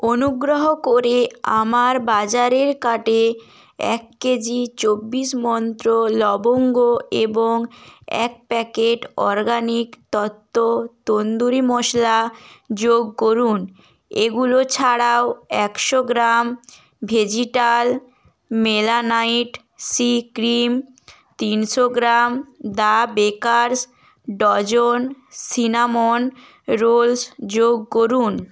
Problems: none marked